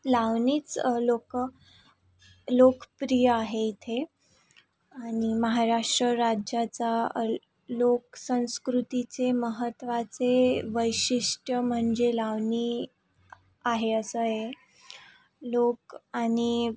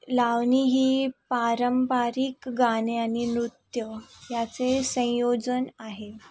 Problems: constant background noise, background conversations at intervals